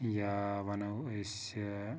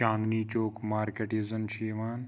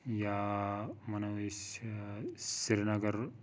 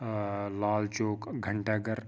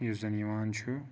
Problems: constant background noise